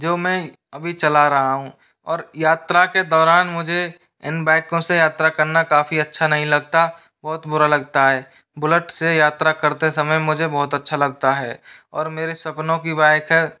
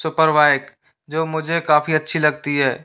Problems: background sounds at intervals